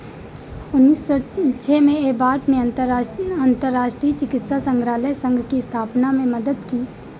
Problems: background sounds at intervals